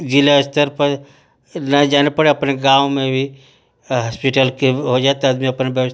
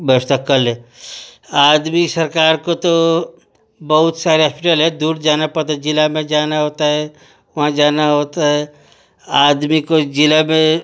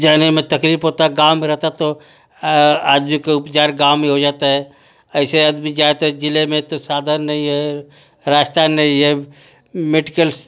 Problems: none marked